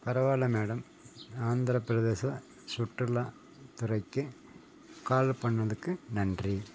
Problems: constant background noise